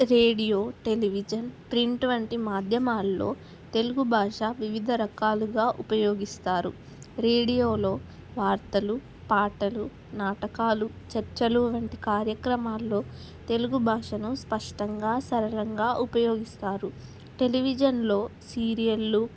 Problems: constant background noise